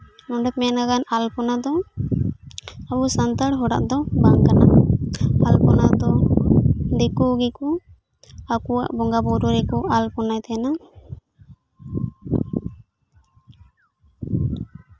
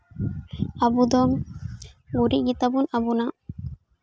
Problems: continuous background conversations